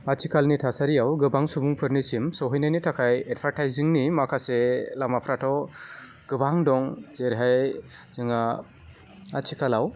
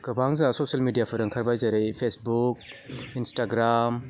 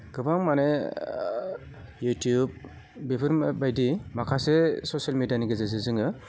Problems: low volume